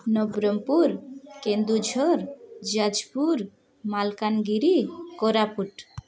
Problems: background conversations at intervals